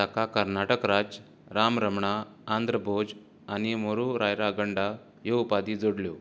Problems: constant background noise